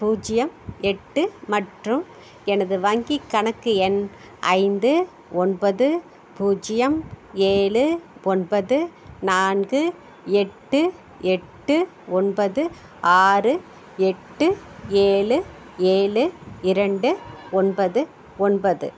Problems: none marked